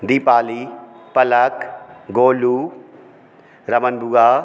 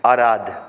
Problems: background sounds at intervals, background conversations at intervals